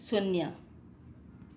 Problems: none marked